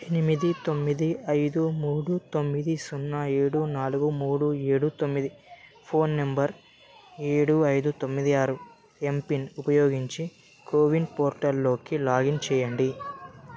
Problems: none marked